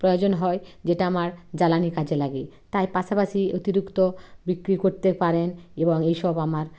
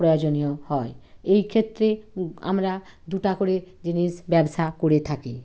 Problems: none marked